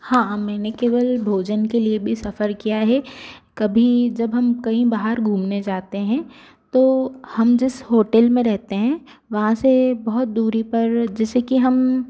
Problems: constant background noise